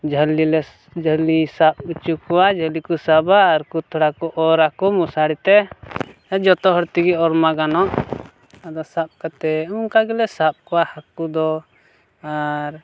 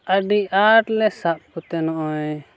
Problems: none marked